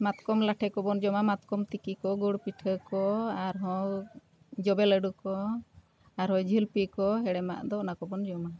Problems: none marked